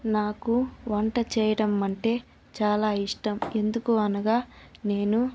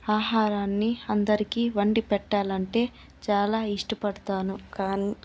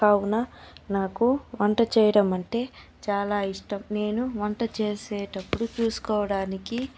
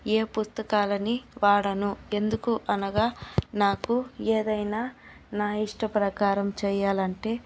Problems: none marked